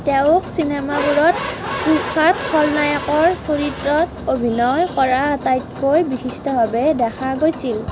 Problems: constant background noise